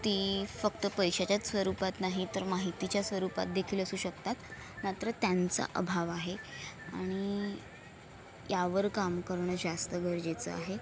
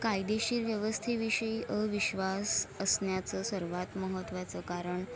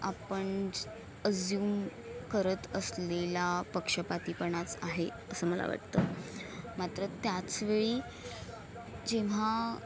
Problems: constant background noise, continuous background conversations